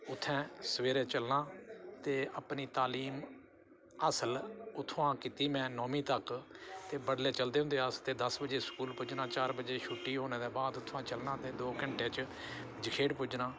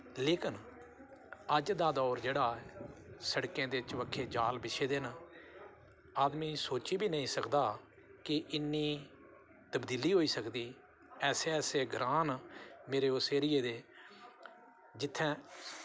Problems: none marked